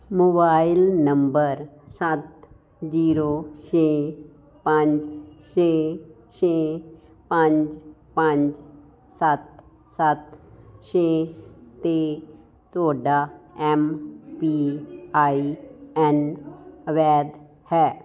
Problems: constant background noise